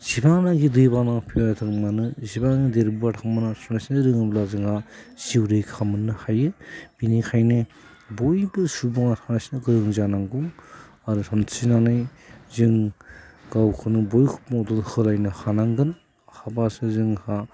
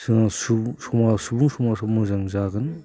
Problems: constant background noise